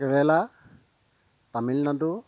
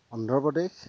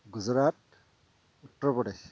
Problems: constant background noise, low volume